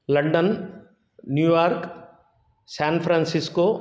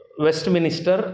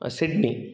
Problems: none marked